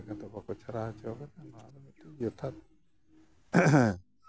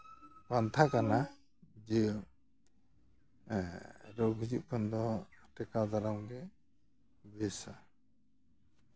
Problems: background sounds at intervals